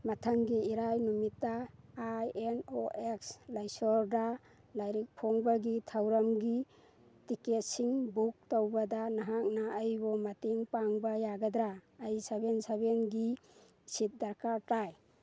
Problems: none marked